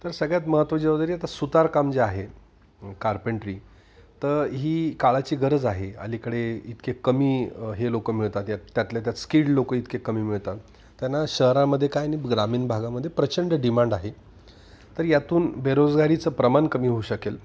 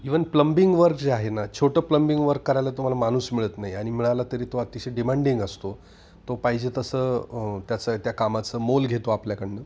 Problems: none marked